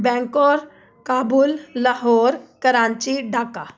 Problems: background sounds at intervals